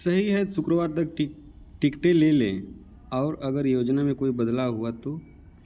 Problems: none marked